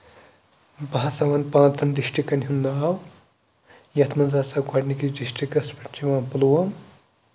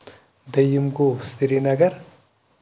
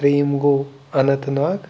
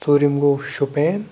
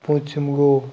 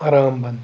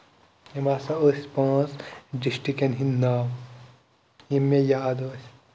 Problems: constant background noise